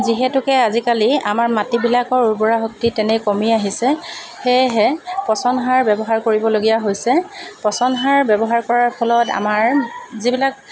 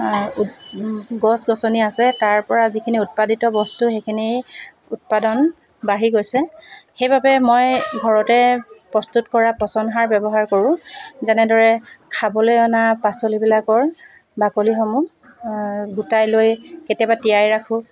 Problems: constant background noise